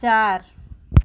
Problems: none marked